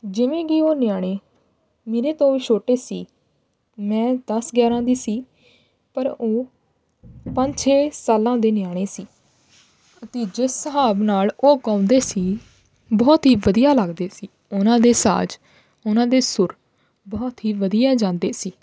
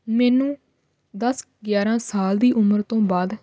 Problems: background sounds at intervals